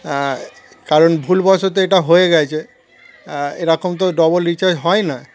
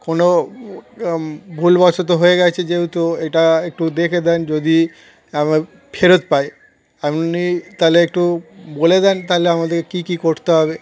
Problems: constant background noise, continuous background conversations